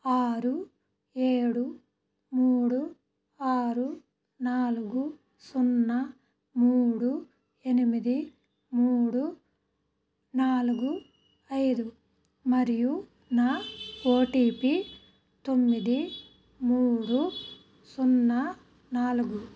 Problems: background sounds at intervals